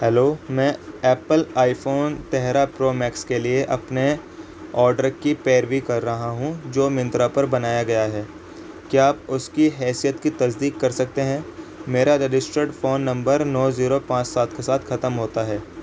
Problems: constant background noise